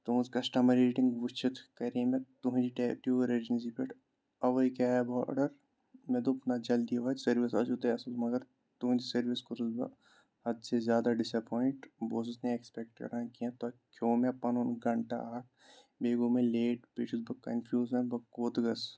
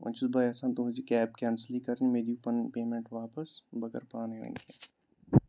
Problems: none marked